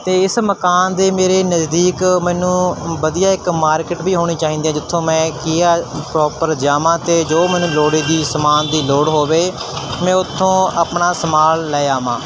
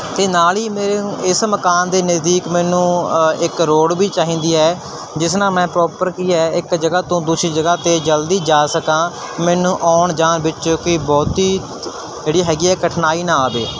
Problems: constant background noise